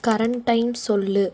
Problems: background sounds at intervals